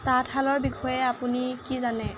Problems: constant background noise